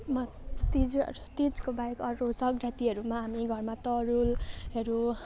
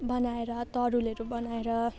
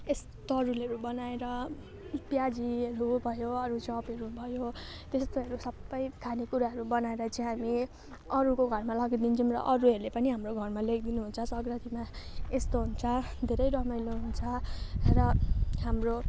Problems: constant background noise